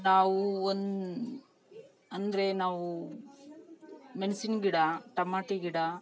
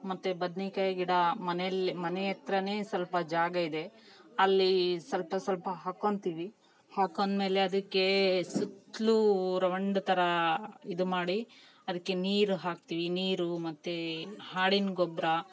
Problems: background conversations at intervals